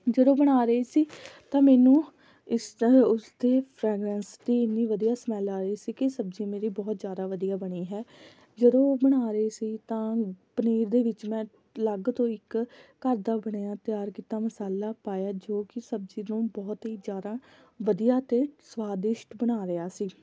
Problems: background sounds at intervals